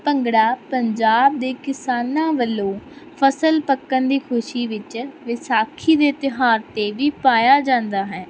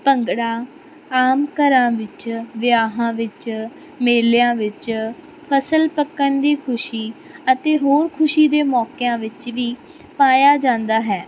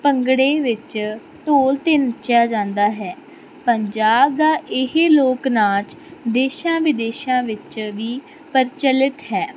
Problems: constant background noise